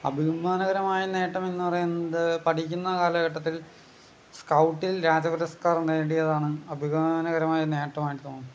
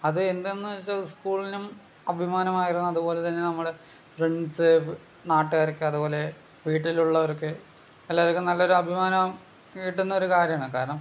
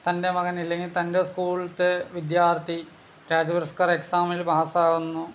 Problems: background sounds at intervals